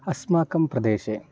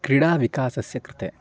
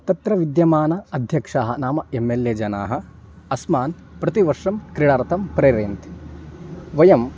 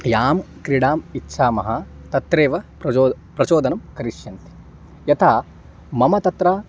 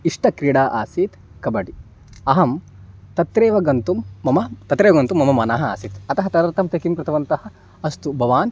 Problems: none marked